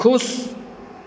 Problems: constant background noise, echo